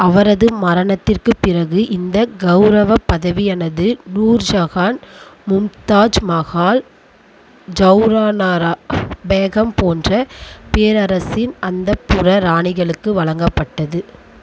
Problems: constant background noise